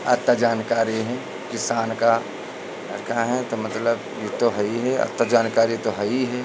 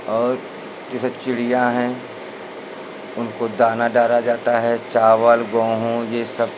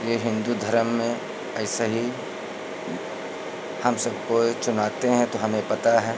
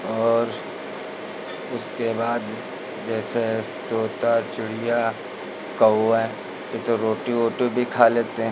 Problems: none marked